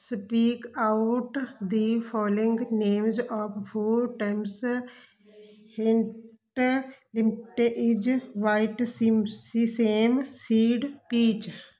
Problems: none marked